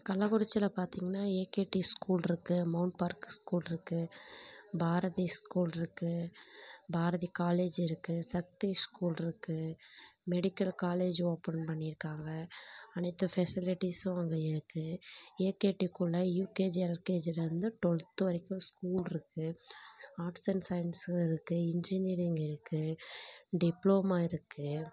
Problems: background conversations at intervals